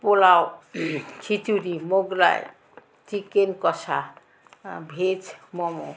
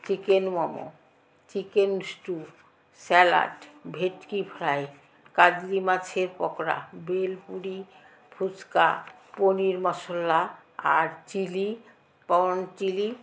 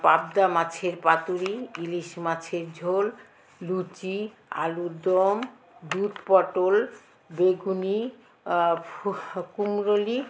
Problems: constant background noise, continuous background conversations